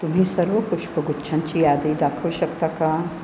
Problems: none marked